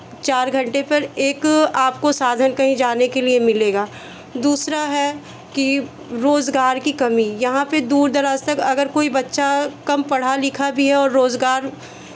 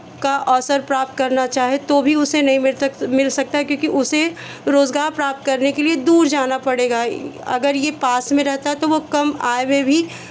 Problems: none marked